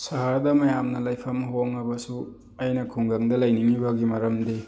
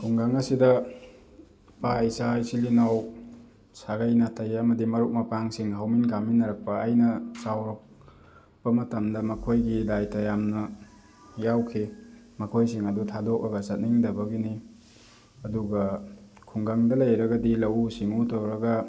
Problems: background sounds at intervals